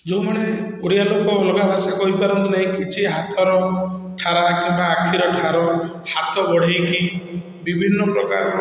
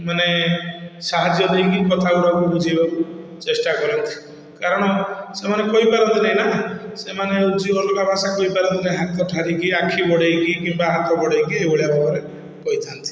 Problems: none marked